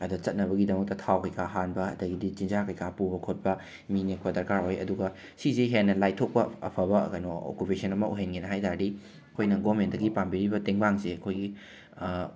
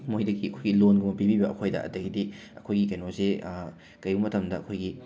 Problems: background sounds at intervals, background conversations at intervals